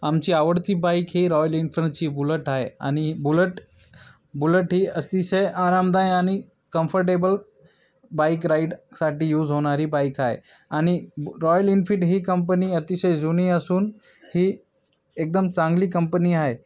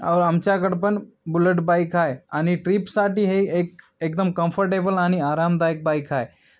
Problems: background sounds at intervals